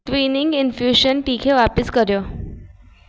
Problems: constant background noise